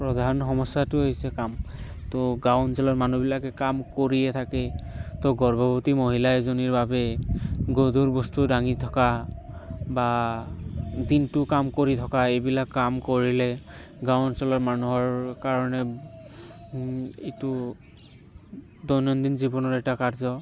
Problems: constant background noise